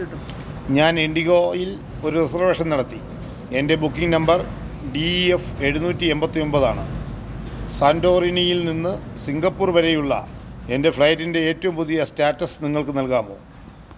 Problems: background conversations at intervals